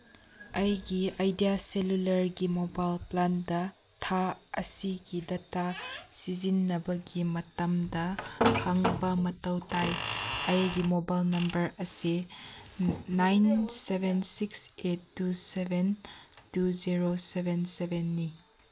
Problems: none marked